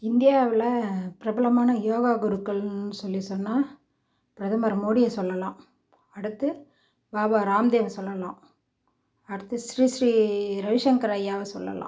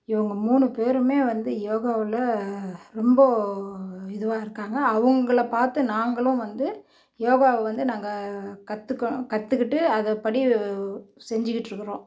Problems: none marked